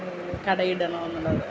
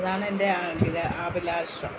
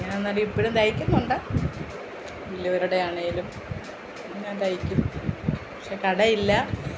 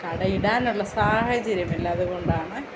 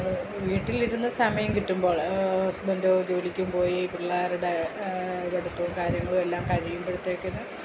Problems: constant background noise, low volume